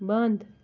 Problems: constant background noise